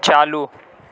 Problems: none marked